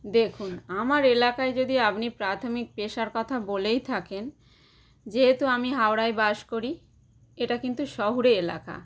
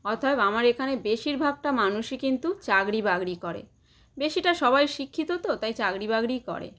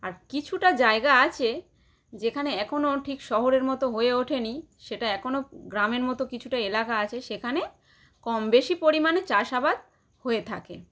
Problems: none marked